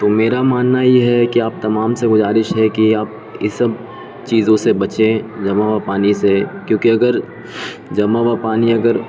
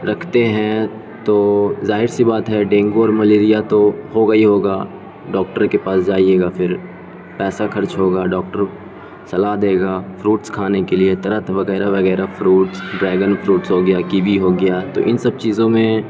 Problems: constant background noise